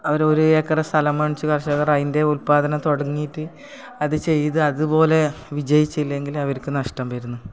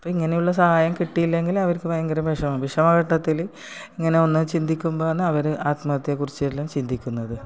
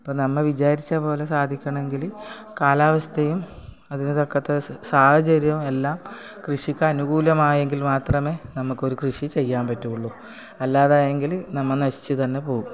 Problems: background sounds at intervals